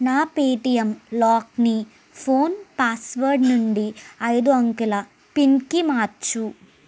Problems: background sounds at intervals